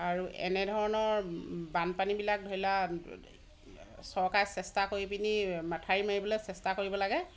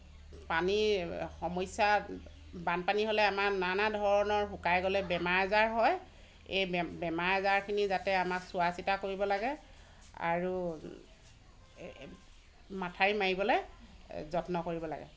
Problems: constant background noise